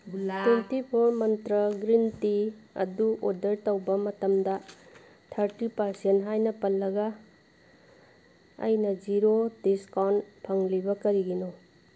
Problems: background sounds at intervals, background conversations at intervals